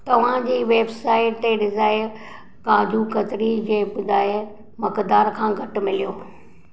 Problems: none marked